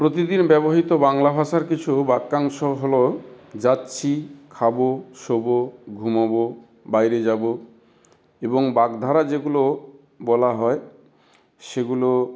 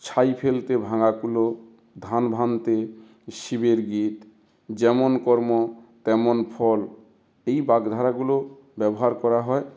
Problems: none marked